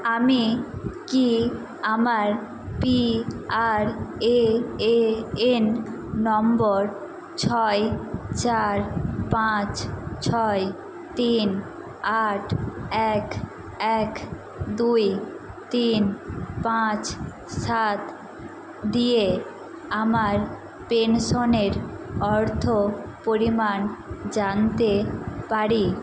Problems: constant background noise